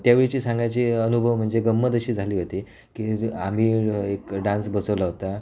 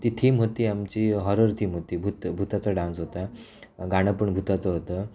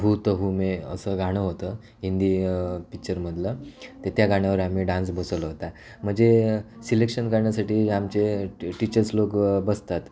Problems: none marked